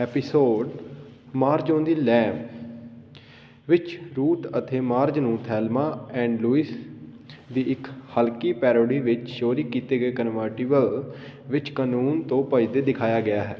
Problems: none marked